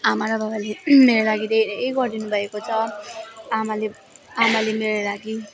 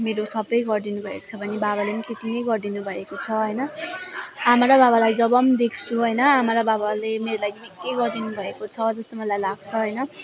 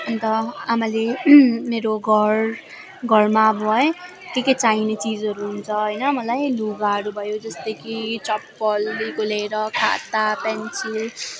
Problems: none marked